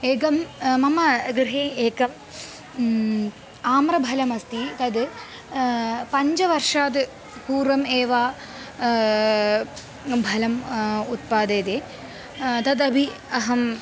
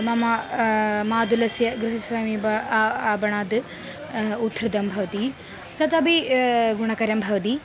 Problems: constant background noise